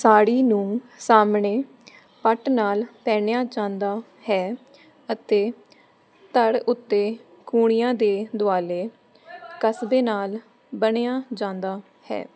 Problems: constant background noise